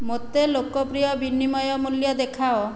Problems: none marked